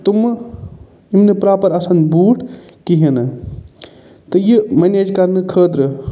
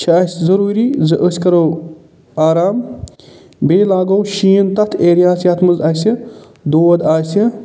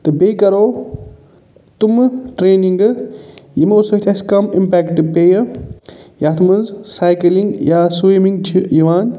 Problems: none marked